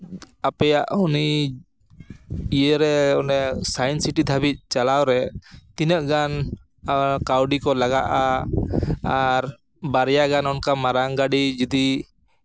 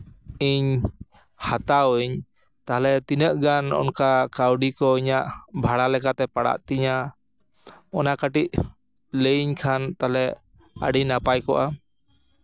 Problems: background sounds at intervals